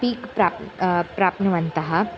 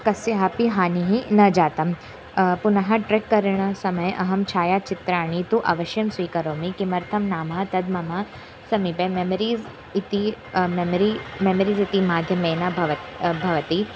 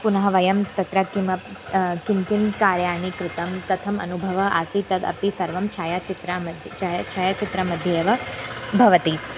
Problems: background sounds at intervals